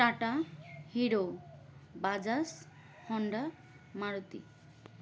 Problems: background sounds at intervals